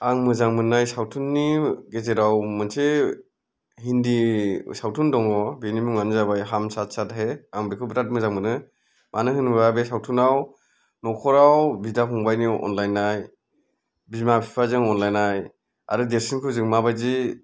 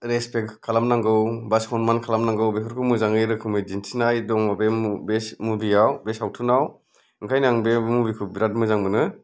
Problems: none marked